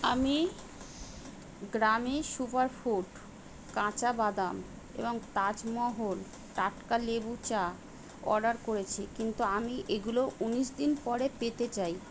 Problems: none marked